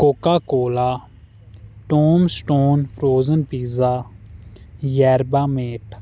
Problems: constant background noise